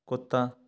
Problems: background sounds at intervals